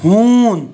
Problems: none marked